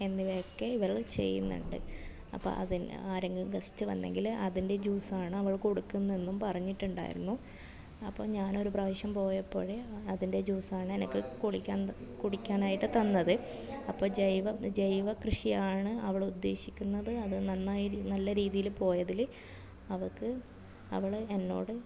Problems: none marked